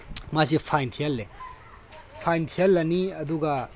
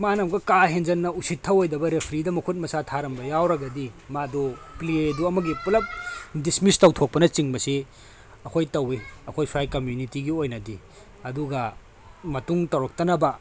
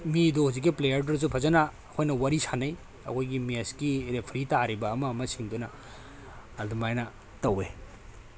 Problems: none marked